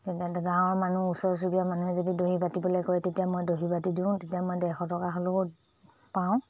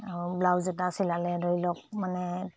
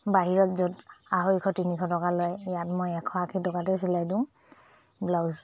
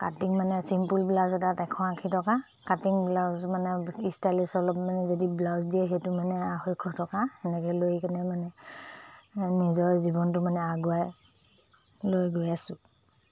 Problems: low volume